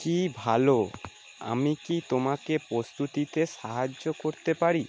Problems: constant background noise